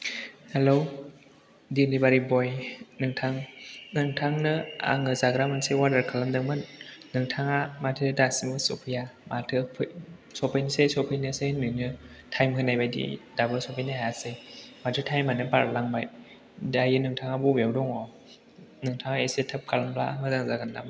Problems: background sounds at intervals